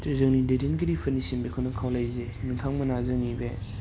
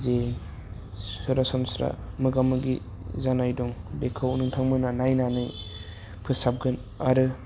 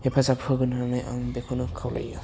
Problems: low volume